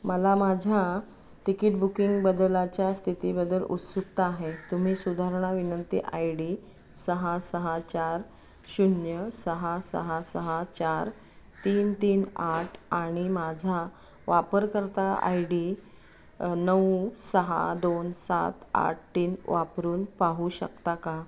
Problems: constant background noise